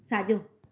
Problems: none marked